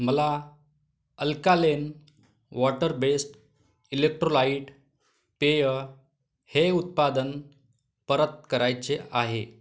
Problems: background sounds at intervals